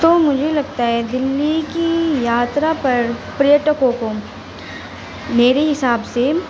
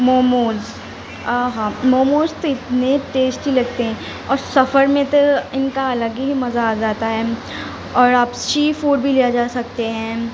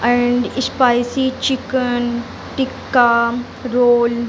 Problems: constant background noise